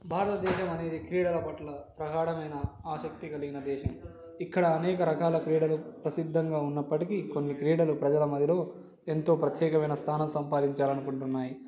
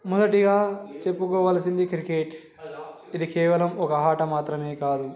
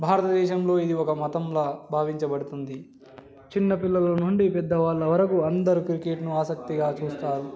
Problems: background sounds at intervals